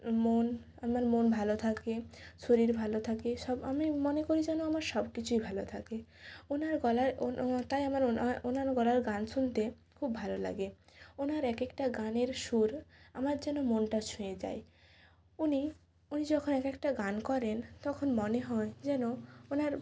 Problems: background sounds at intervals